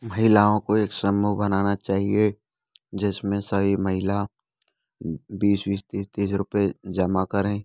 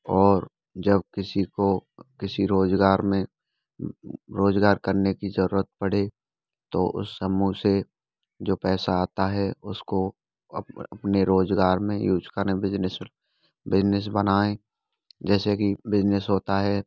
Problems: background sounds at intervals, background conversations at intervals